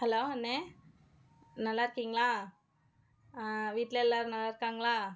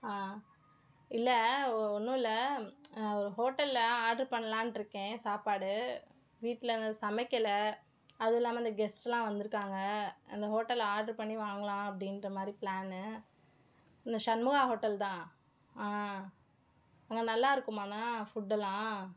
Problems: none marked